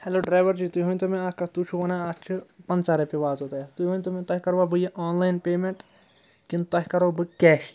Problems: none marked